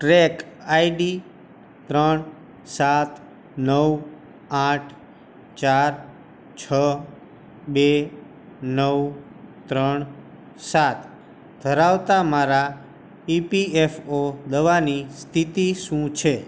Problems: constant background noise